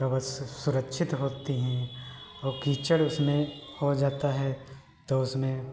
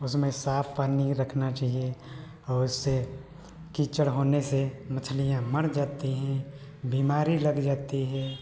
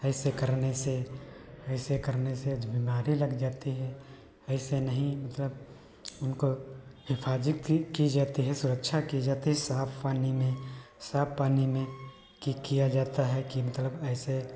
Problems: none marked